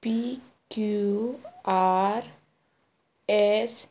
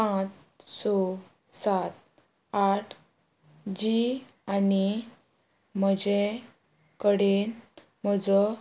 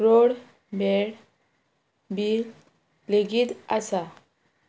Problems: none marked